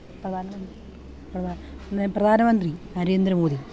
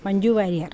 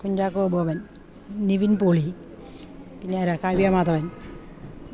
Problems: background conversations at intervals